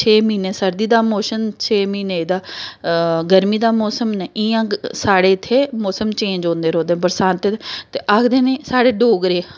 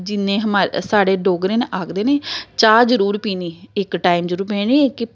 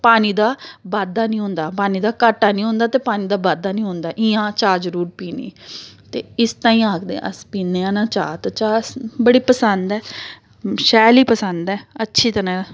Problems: background sounds at intervals